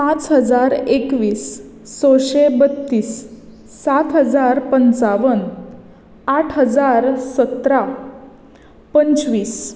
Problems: background sounds at intervals